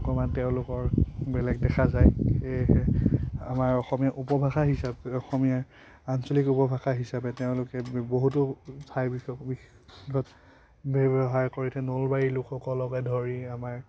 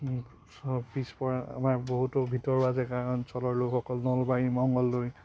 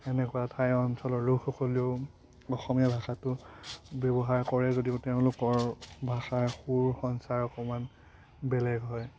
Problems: constant background noise, background conversations at intervals